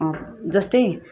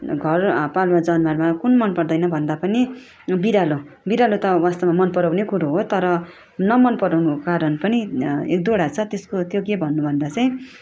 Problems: background sounds at intervals